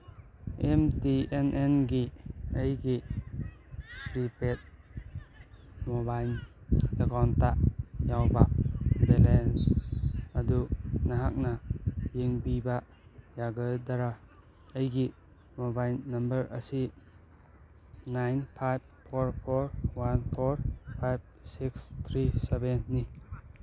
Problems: background sounds at intervals, background conversations at intervals